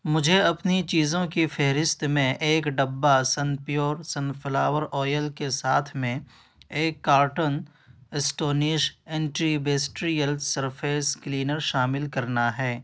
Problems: background sounds at intervals